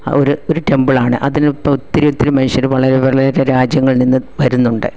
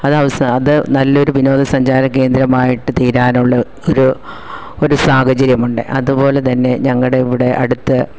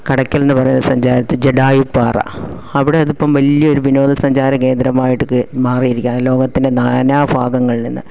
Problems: none marked